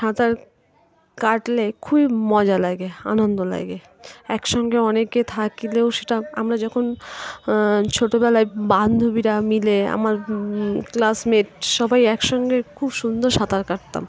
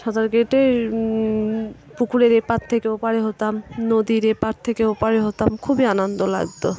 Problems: constant background noise, continuous background conversations